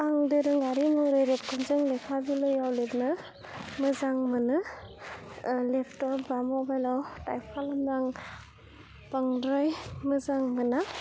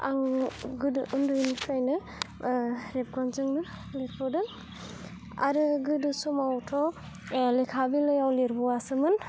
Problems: low volume